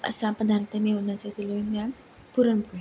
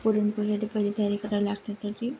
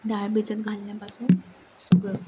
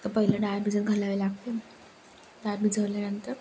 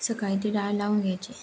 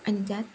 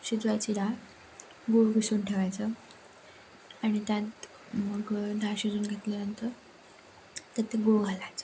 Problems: constant background noise, background conversations at intervals